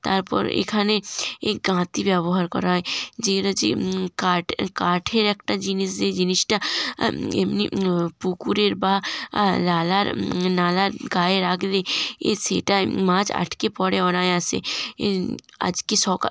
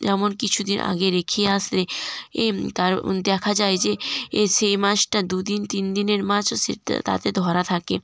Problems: none marked